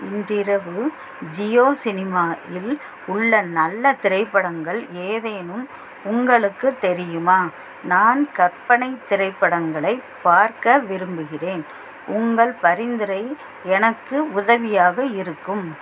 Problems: constant background noise